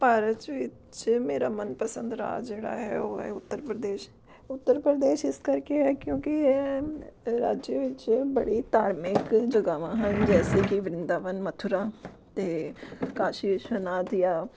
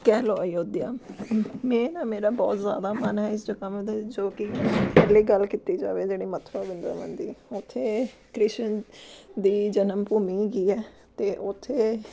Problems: background sounds at intervals